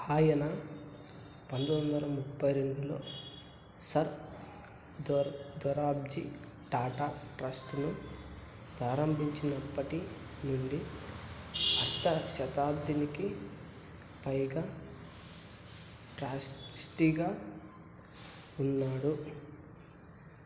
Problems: constant background noise